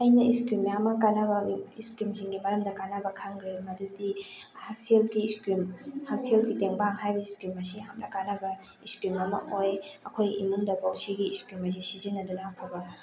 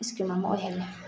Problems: background sounds at intervals